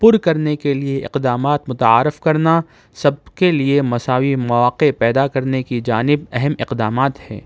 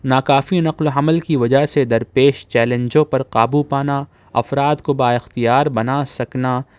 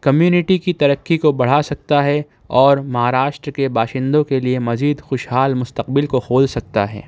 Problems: none marked